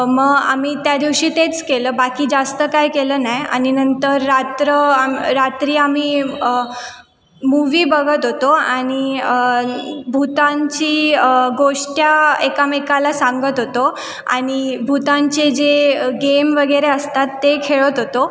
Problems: none marked